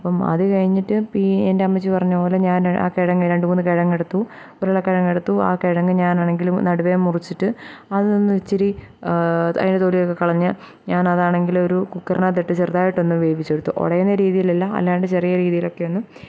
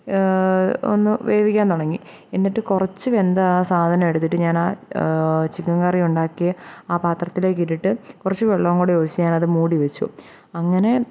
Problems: none marked